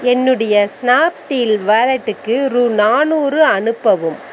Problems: background sounds at intervals